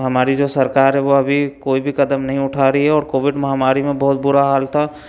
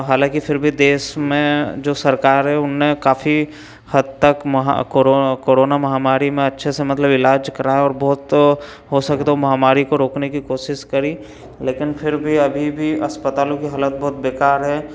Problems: none marked